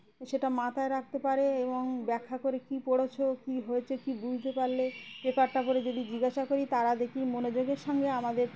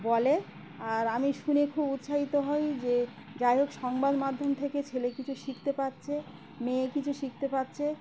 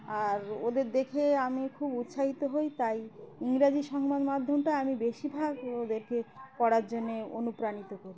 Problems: background sounds at intervals, background conversations at intervals